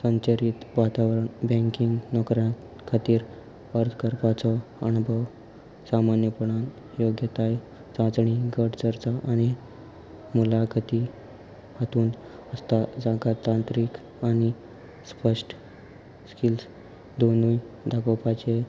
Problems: constant background noise